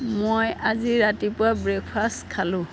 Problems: constant background noise